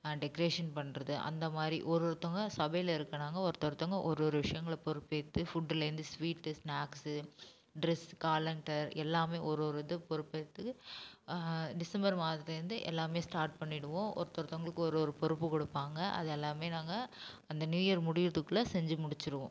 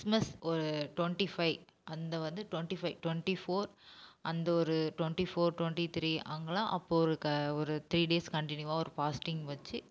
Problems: none marked